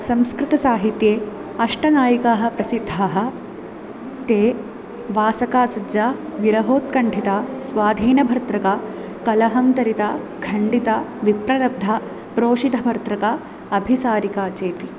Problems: constant background noise